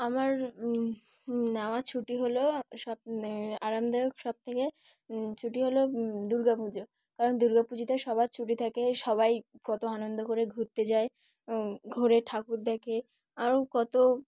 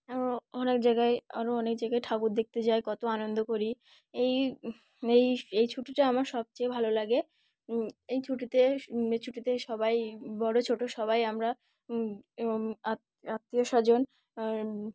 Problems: none marked